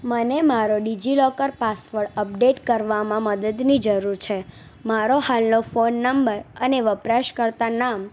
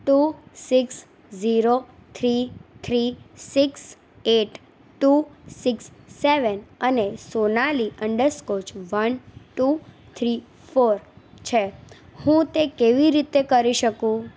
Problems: none marked